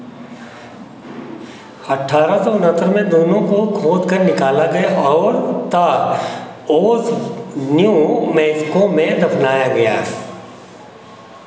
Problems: none marked